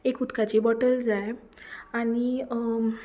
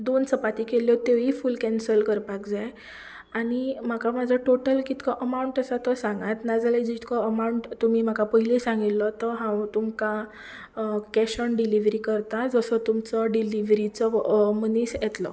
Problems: background sounds at intervals